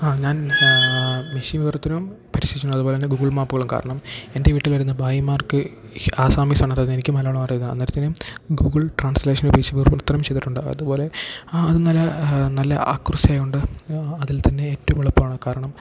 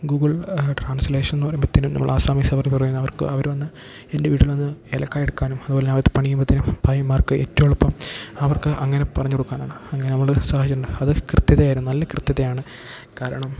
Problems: background sounds at intervals